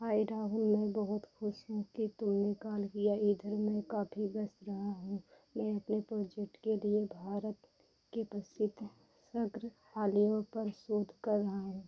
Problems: none marked